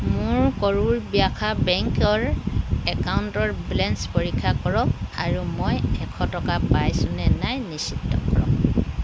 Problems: constant background noise